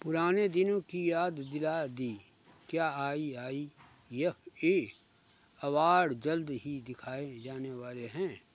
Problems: constant background noise